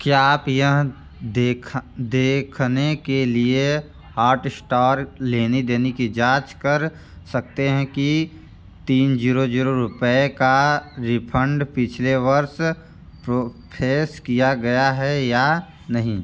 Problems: none marked